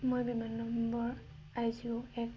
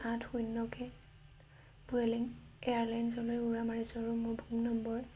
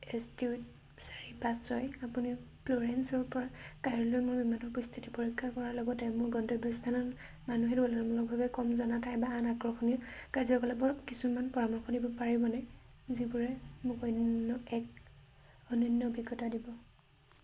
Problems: none marked